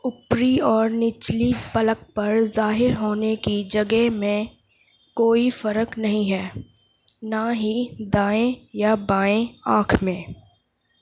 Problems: background sounds at intervals